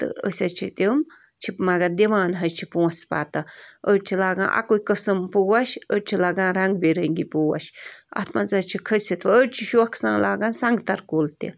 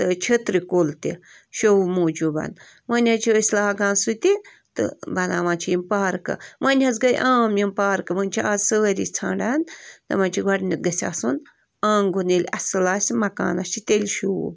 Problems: constant background noise